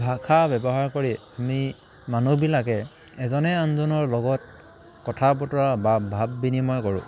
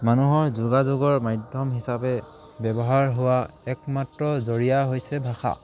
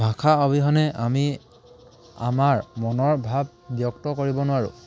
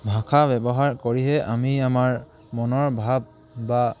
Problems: none marked